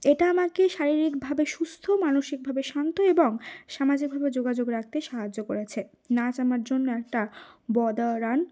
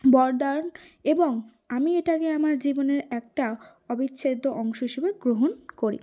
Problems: none marked